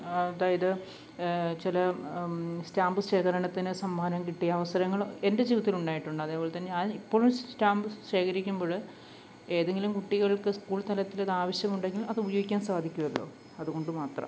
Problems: background sounds at intervals